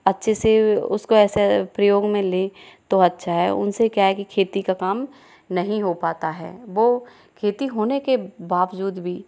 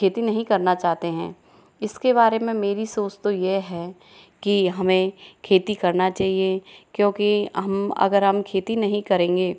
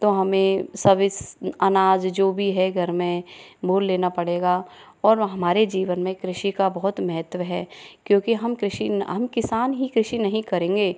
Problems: background conversations at intervals